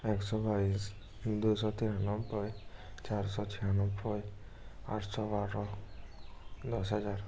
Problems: background sounds at intervals